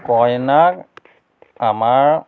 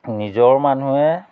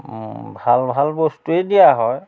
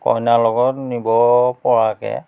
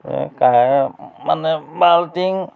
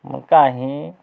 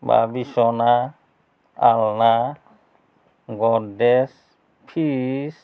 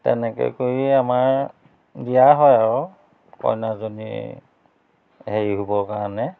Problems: constant background noise